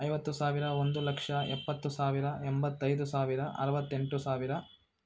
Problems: none marked